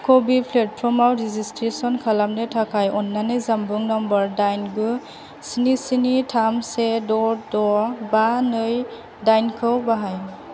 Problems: none marked